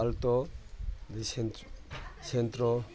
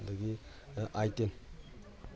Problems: background sounds at intervals